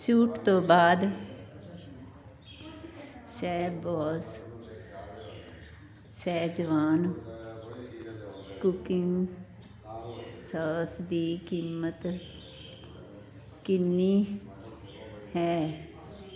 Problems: constant background noise